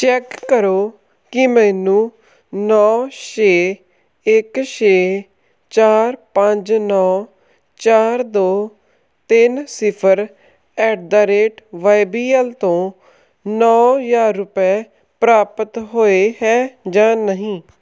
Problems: none marked